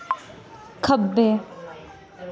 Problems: constant background noise